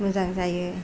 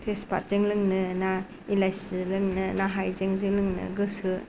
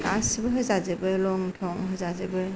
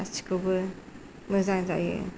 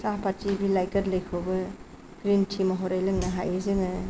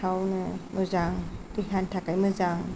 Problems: none marked